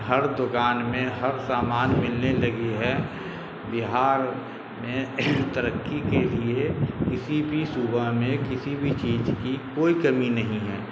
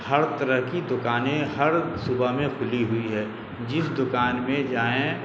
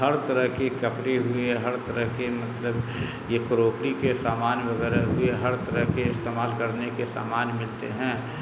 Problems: constant background noise